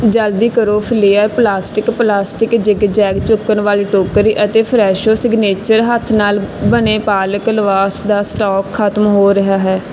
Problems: none marked